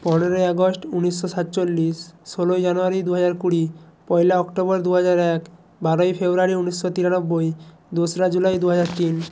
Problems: background sounds at intervals